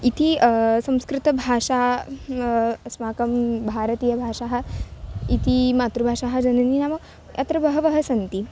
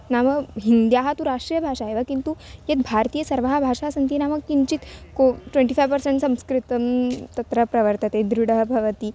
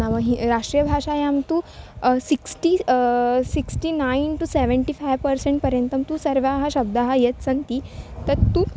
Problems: constant background noise